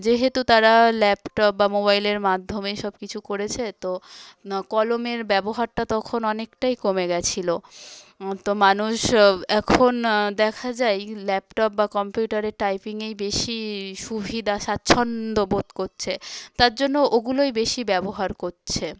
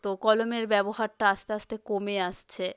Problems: background sounds at intervals, background conversations at intervals